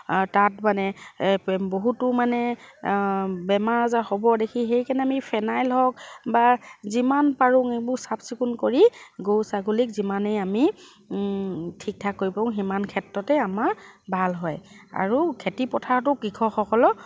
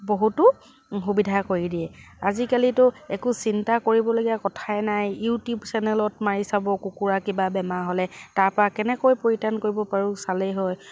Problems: none marked